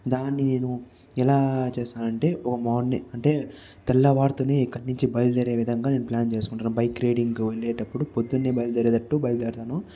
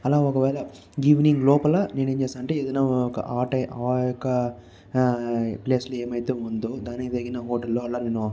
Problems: constant background noise, background conversations at intervals